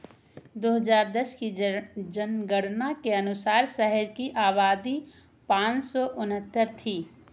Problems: none marked